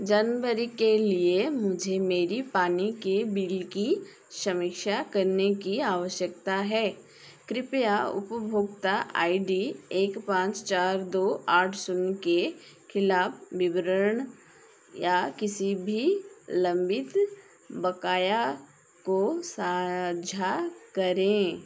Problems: constant background noise